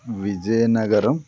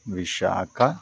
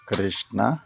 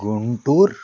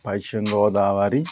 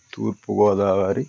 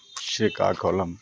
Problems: background conversations at intervals